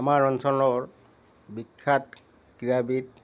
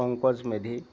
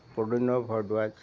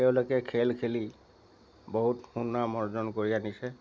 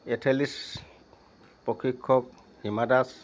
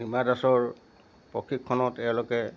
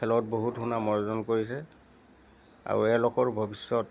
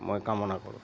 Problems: constant background noise